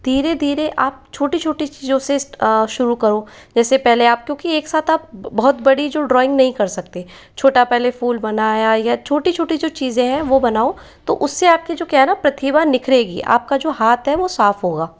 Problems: none marked